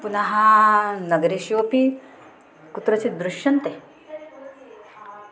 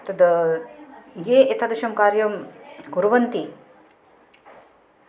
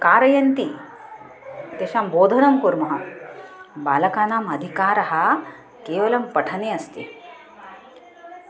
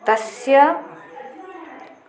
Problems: constant background noise, continuous background conversations